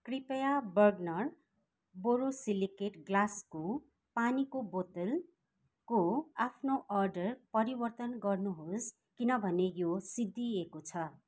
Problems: none marked